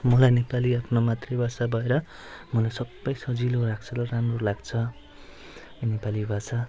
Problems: background sounds at intervals